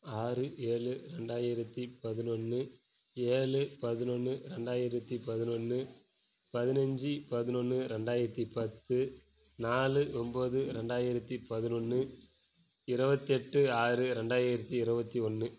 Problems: low volume